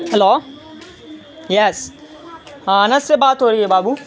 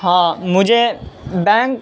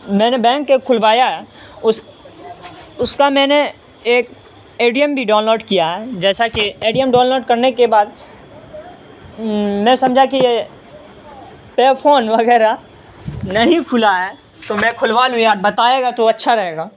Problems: constant background noise, continuous background conversations